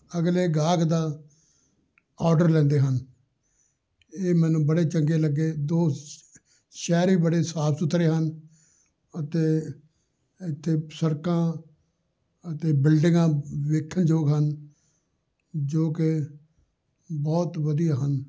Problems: none marked